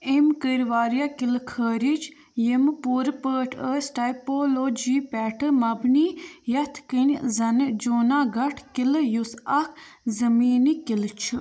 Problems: background conversations at intervals